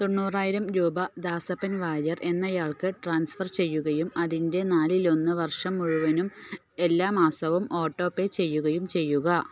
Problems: none marked